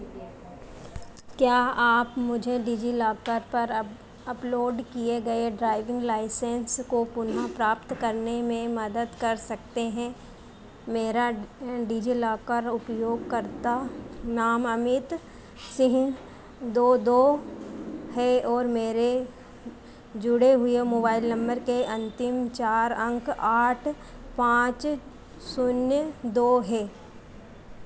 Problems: constant background noise